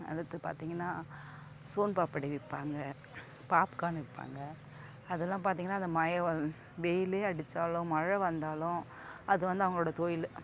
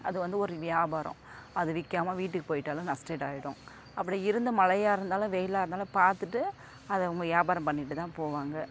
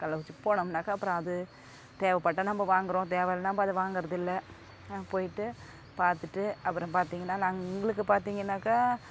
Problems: none marked